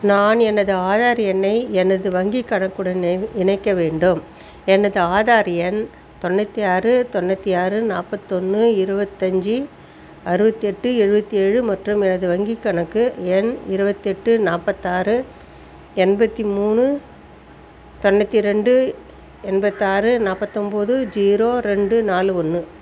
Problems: constant background noise